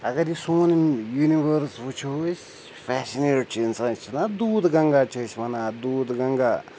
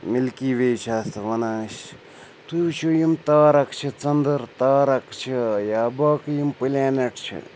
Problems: none marked